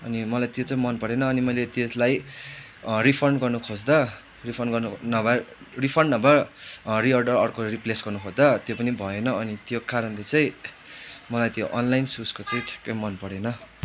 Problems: constant background noise